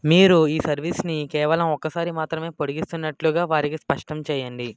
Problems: background sounds at intervals